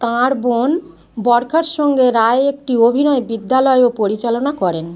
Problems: constant background noise